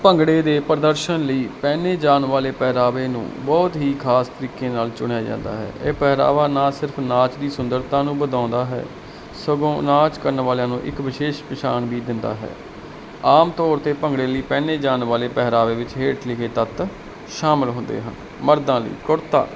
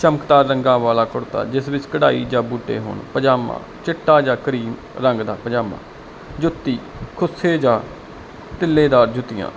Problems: none marked